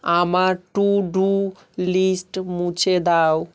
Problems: constant background noise